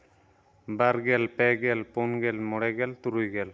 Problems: none marked